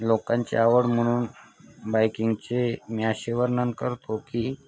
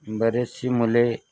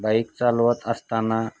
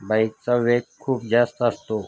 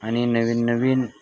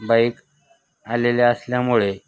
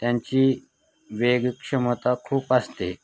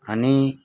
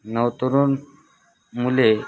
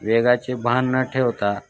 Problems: none marked